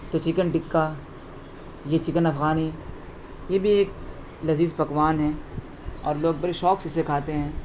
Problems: constant background noise